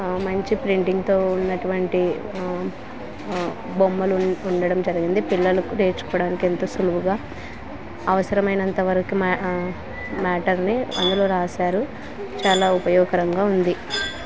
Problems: constant background noise